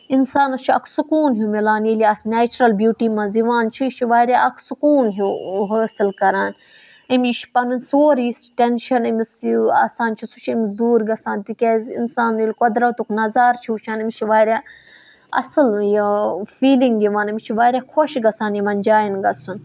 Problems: none marked